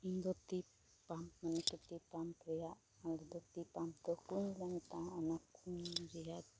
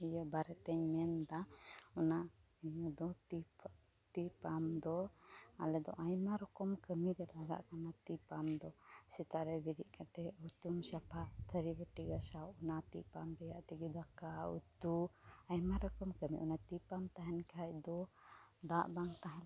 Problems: constant background noise